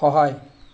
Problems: constant background noise